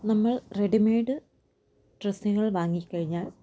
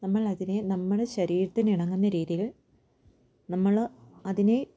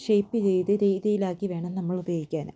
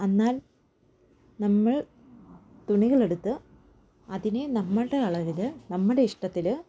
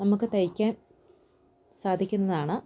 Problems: background sounds at intervals